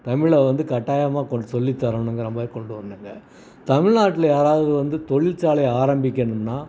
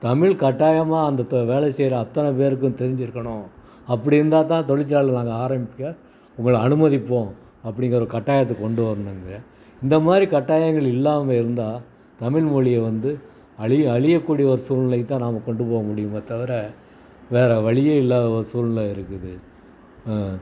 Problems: background sounds at intervals, background conversations at intervals